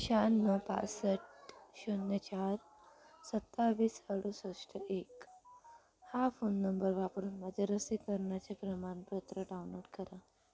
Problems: background sounds at intervals, background conversations at intervals, low volume